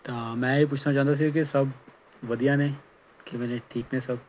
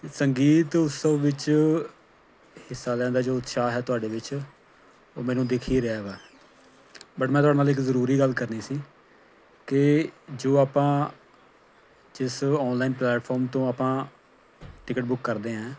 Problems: background sounds at intervals